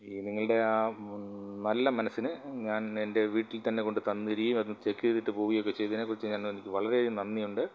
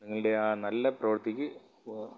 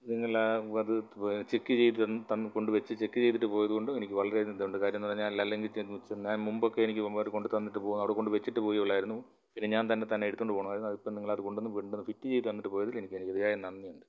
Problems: low volume